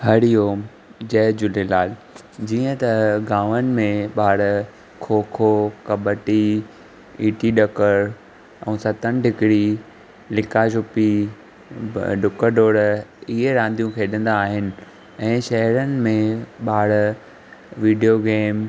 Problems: none marked